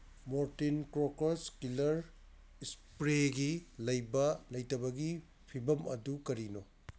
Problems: constant background noise